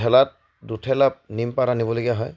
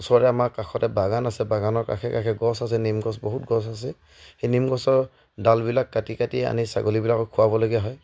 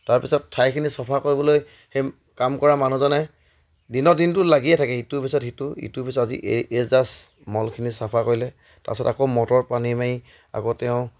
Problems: none marked